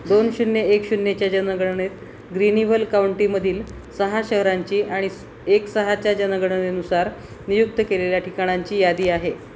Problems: constant background noise, background conversations at intervals